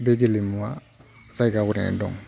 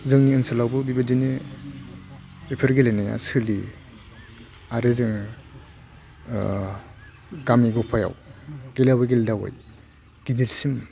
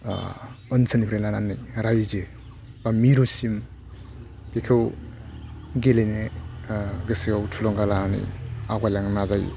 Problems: low volume